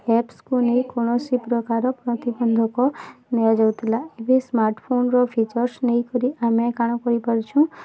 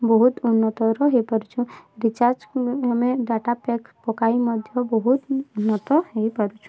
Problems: constant background noise, continuous background conversations